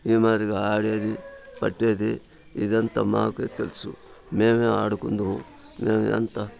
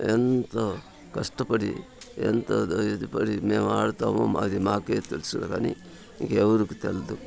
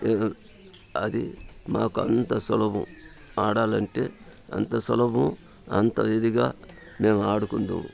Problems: constant background noise, continuous background conversations